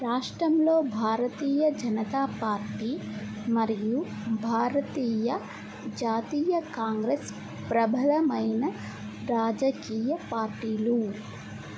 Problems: low volume